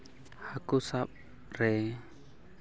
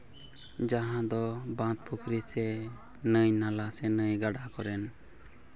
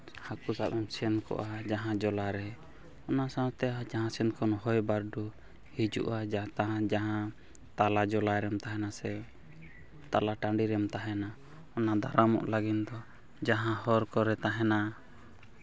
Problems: background sounds at intervals